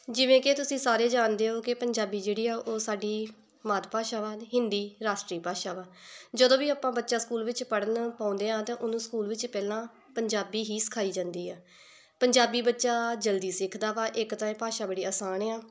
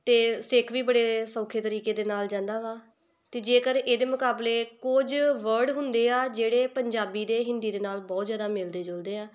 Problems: none marked